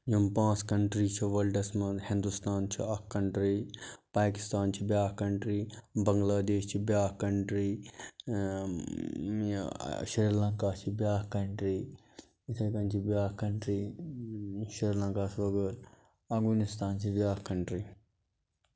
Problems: constant background noise